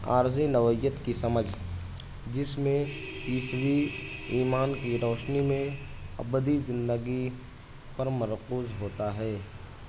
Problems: constant background noise